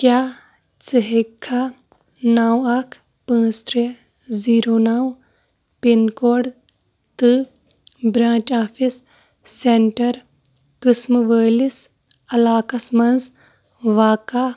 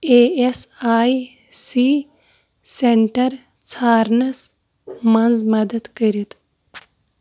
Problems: none marked